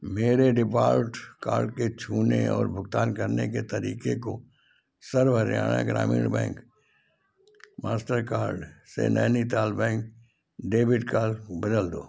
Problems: background sounds at intervals